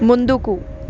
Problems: constant background noise